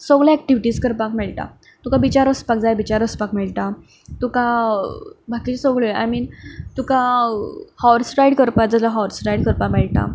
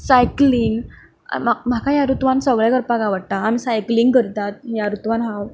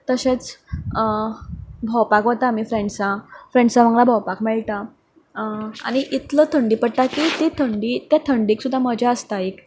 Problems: none marked